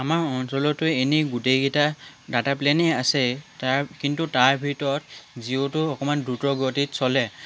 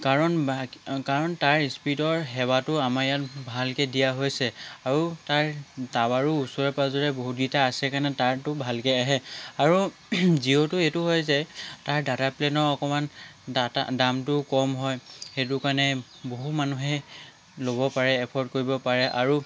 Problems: none marked